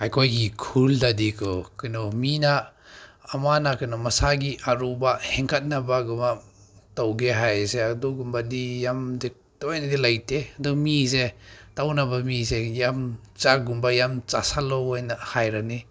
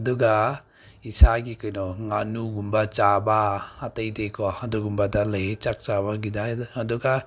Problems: none marked